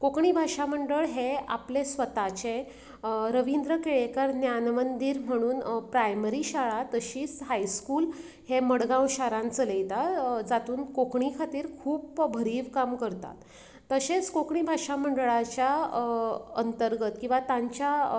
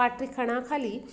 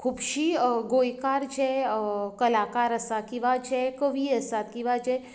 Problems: none marked